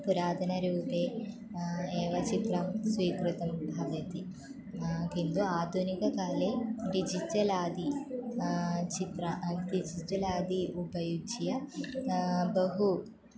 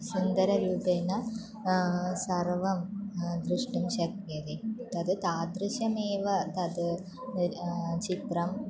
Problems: none marked